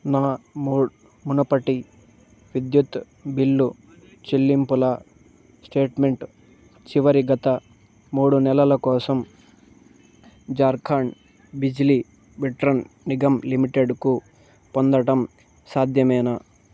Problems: none marked